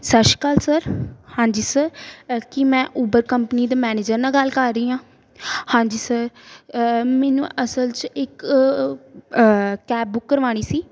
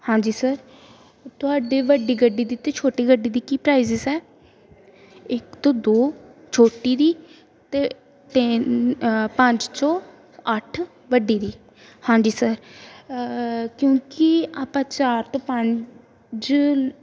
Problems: background sounds at intervals